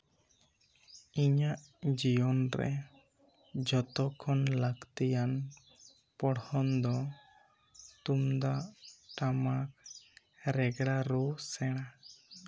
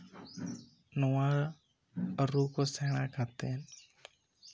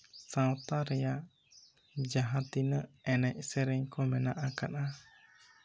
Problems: low volume